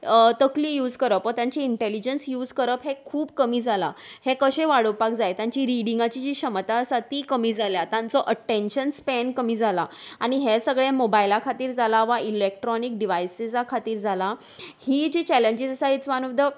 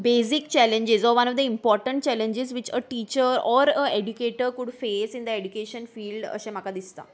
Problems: background sounds at intervals